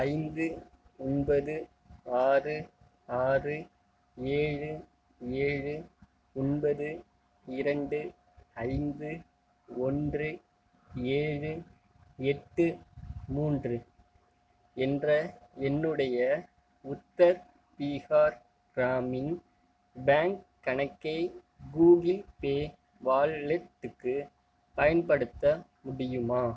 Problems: none marked